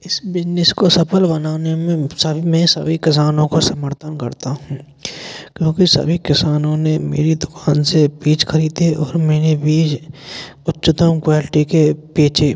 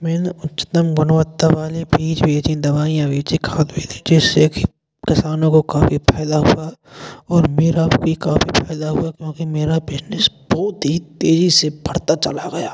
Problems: constant background noise, echo